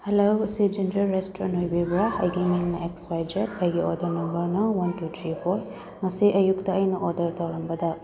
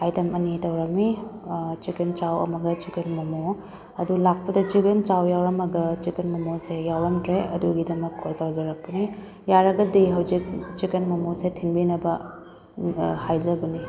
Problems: background conversations at intervals, low volume